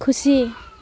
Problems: none marked